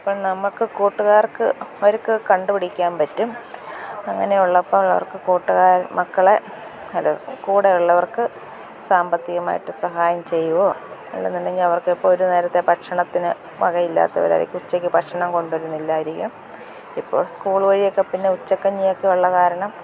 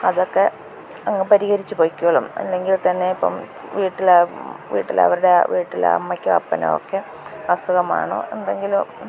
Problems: none marked